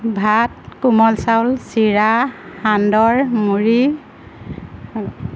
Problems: constant background noise